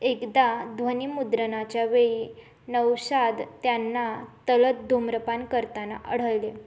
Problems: none marked